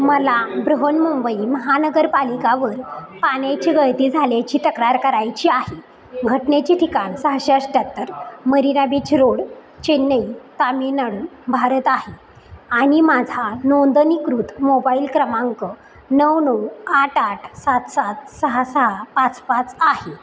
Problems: none marked